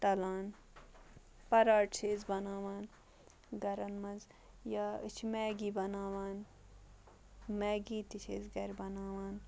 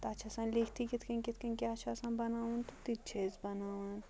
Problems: background sounds at intervals, low volume